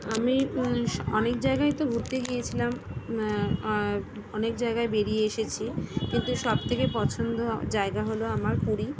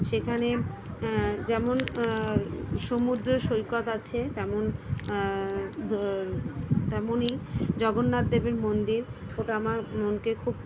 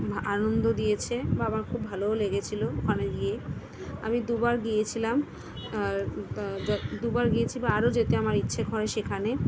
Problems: constant background noise, background conversations at intervals